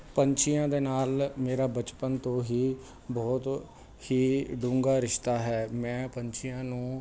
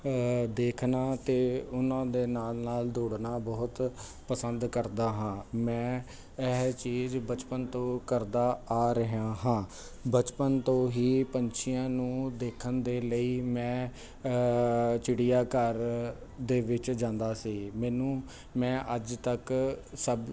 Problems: constant background noise